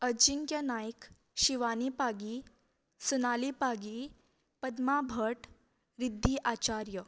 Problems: low volume